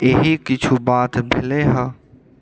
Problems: background sounds at intervals